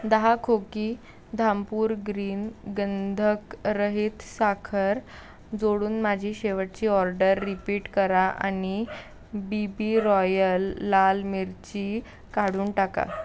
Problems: constant background noise